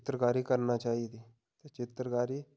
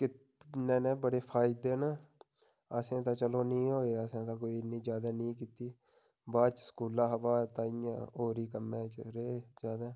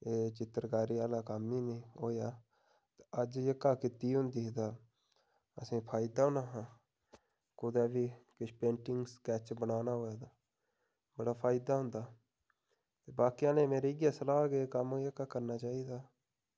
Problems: background sounds at intervals